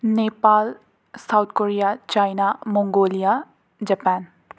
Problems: none marked